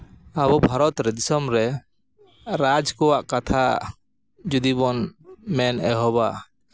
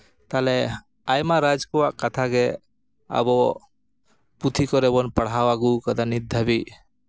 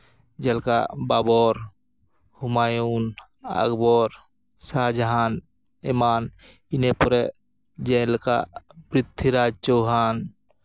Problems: background sounds at intervals